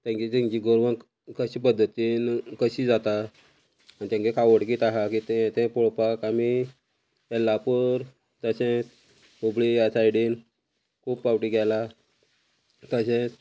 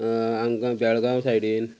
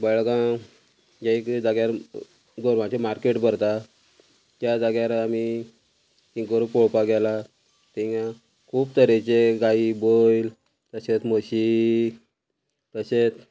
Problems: constant background noise